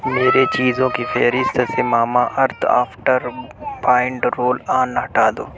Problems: background sounds at intervals